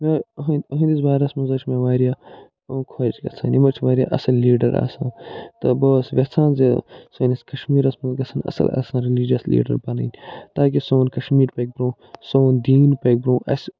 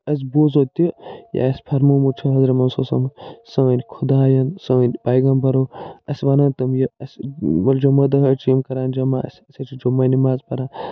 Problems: none marked